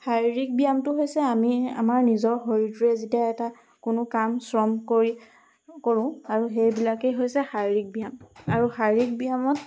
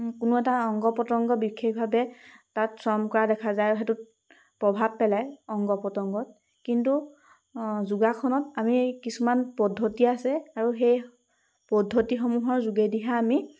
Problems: constant background noise